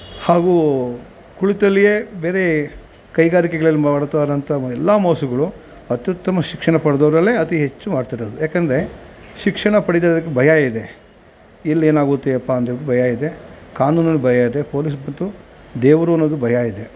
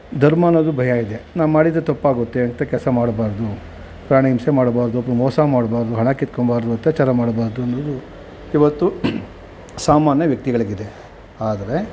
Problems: constant background noise